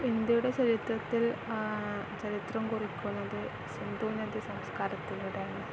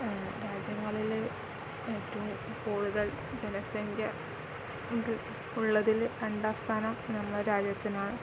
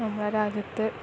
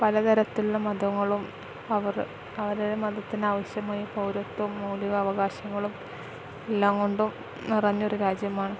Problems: constant background noise